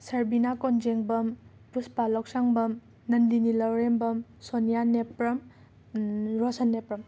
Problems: background sounds at intervals